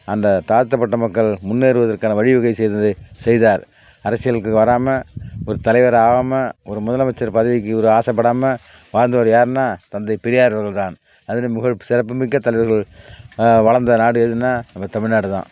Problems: none marked